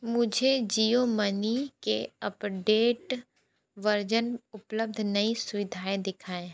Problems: background sounds at intervals